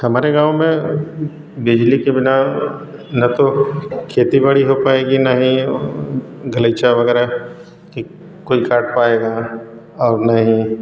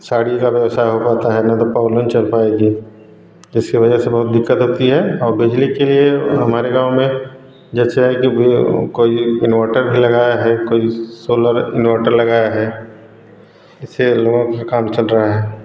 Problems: background sounds at intervals